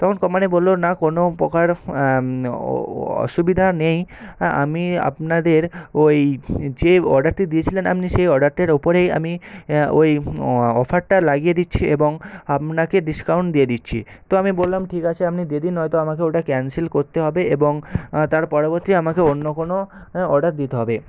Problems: none marked